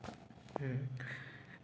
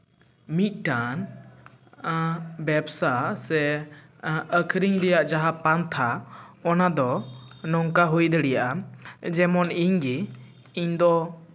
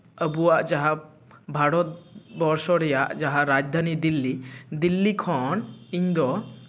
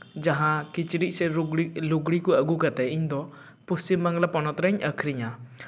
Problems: none marked